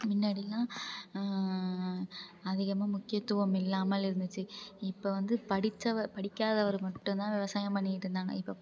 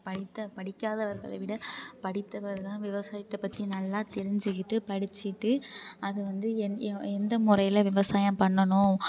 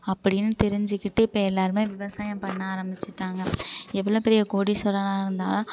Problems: low volume